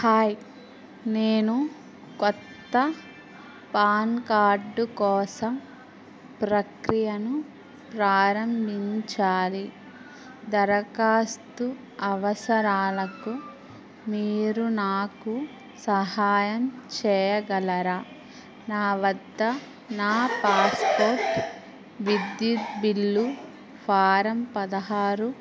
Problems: constant background noise